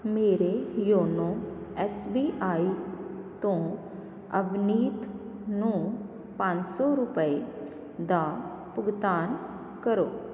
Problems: none marked